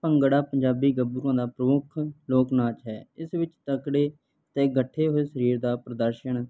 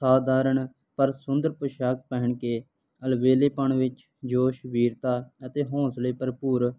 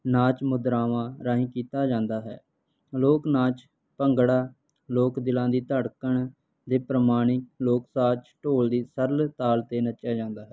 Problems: none marked